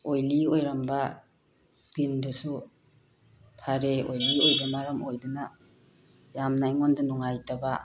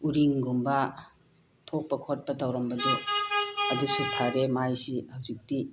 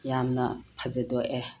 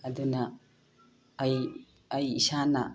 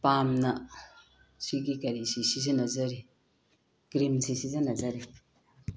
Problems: background sounds at intervals